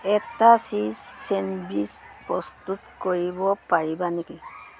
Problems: constant background noise